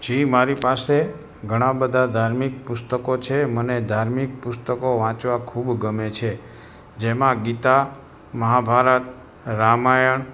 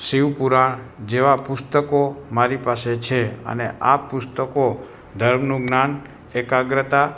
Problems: constant background noise